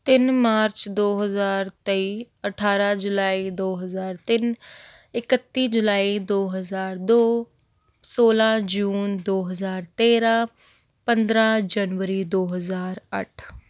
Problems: none marked